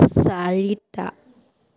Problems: background sounds at intervals